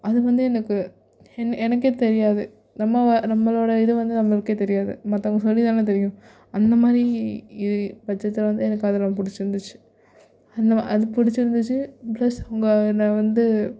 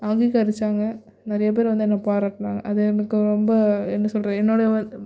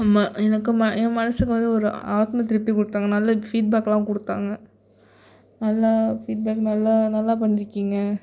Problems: none marked